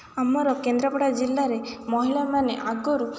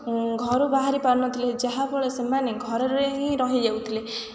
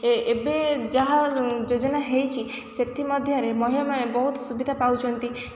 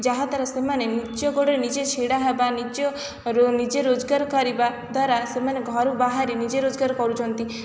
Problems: background sounds at intervals, background conversations at intervals